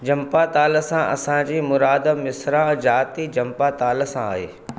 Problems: none marked